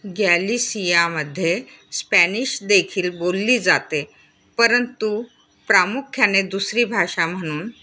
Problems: none marked